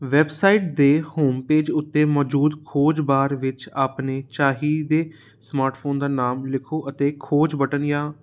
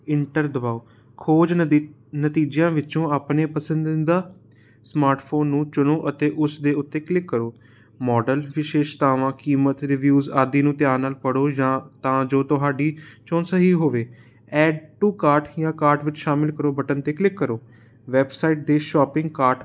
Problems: constant background noise